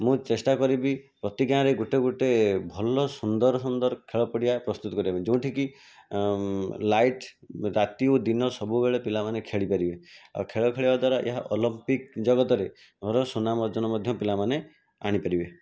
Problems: constant background noise